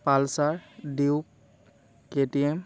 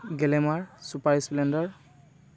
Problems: constant background noise